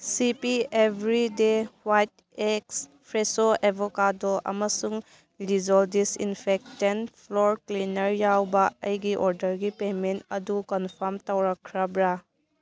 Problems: none marked